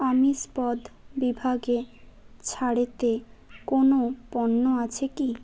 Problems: background sounds at intervals